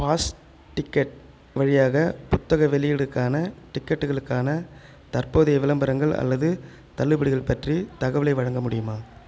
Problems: none marked